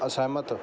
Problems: none marked